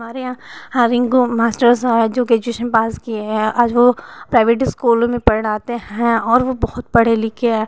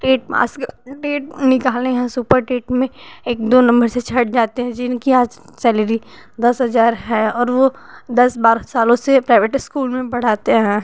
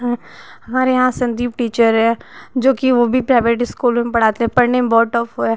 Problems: constant background noise